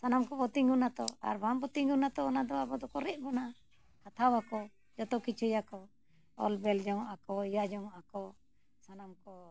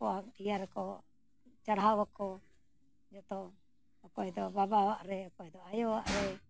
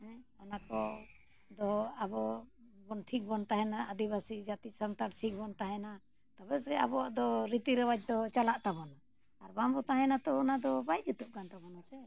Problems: none marked